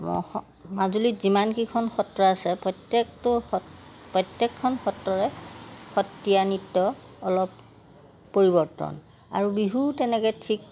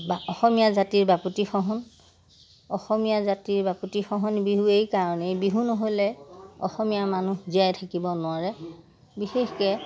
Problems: none marked